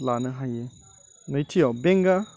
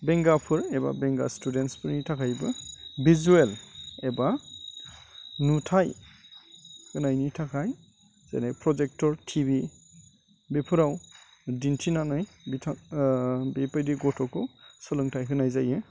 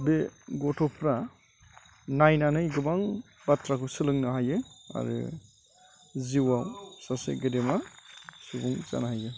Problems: none marked